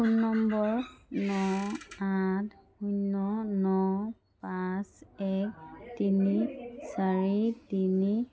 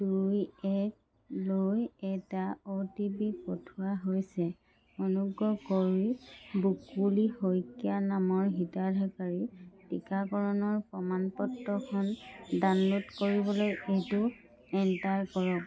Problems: none marked